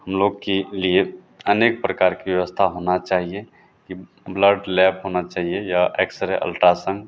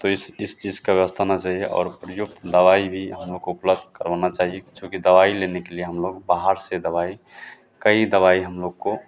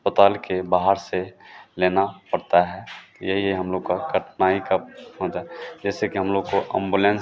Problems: none marked